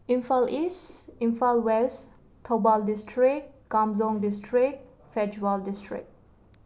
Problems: constant background noise